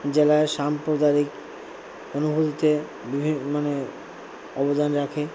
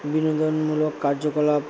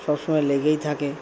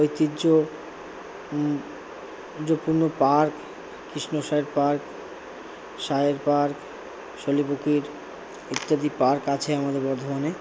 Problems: constant background noise, low volume